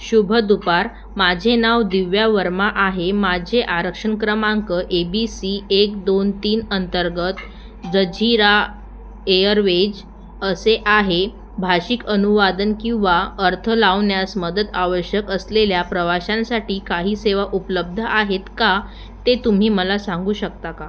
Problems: none marked